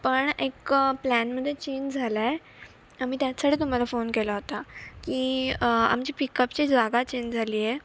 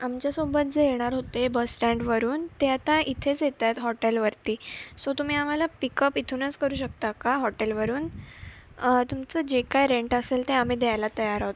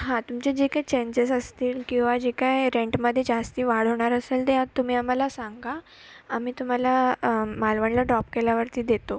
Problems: none marked